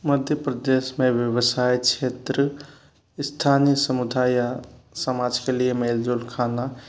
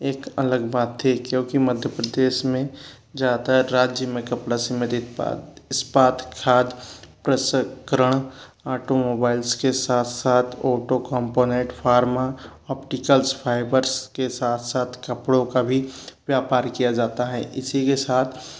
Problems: none marked